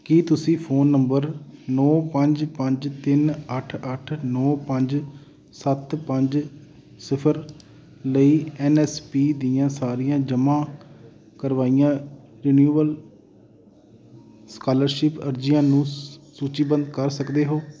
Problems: constant background noise